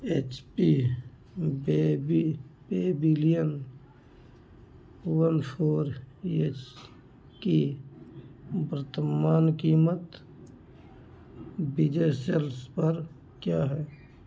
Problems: background sounds at intervals